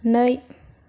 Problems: none marked